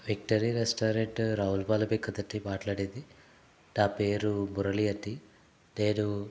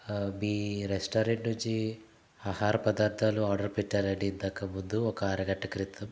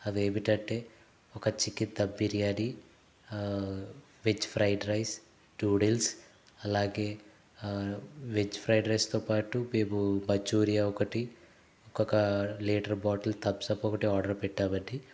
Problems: none marked